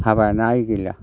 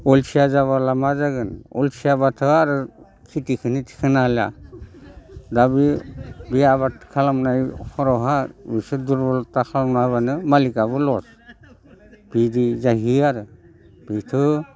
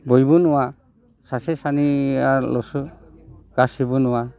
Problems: none marked